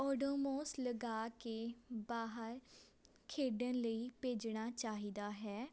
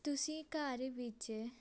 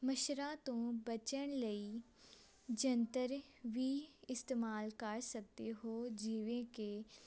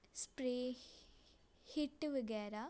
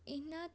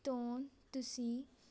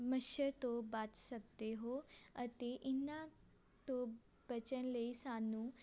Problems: constant background noise